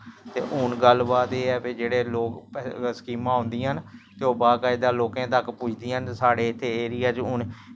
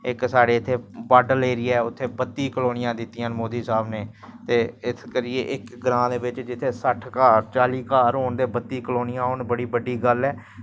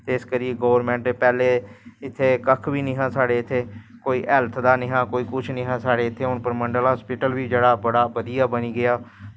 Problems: none marked